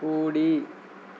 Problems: constant background noise